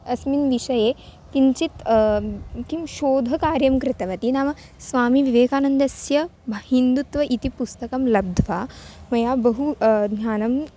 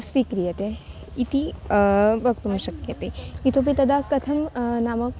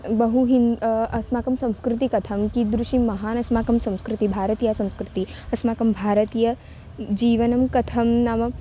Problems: none marked